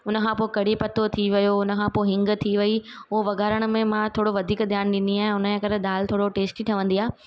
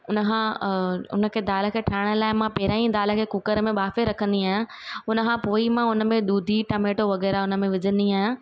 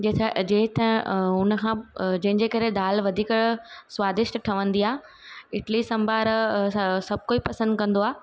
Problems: none marked